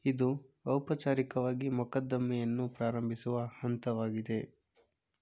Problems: none marked